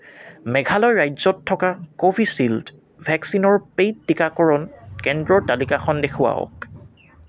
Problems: none marked